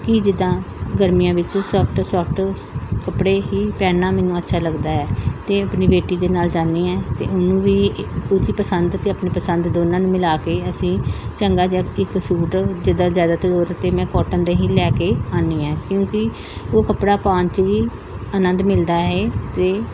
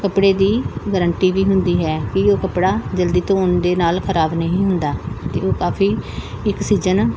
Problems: background sounds at intervals, background conversations at intervals